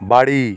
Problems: constant background noise